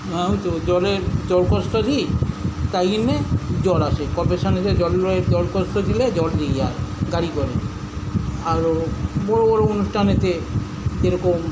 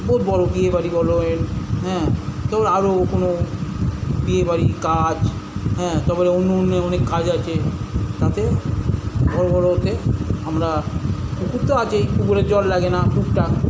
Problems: none marked